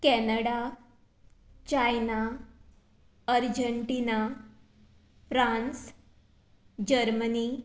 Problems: constant background noise